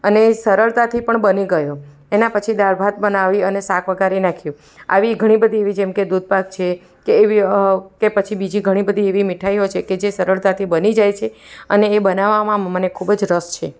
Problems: background sounds at intervals, background conversations at intervals